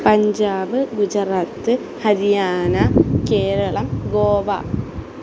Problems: constant background noise